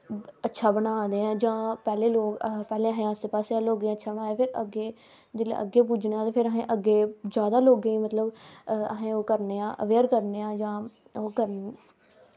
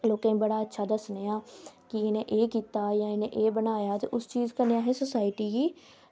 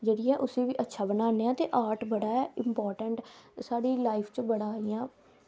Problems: constant background noise